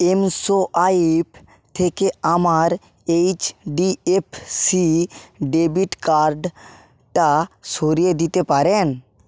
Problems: constant background noise